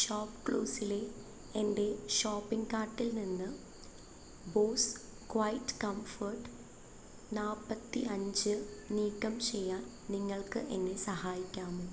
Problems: constant background noise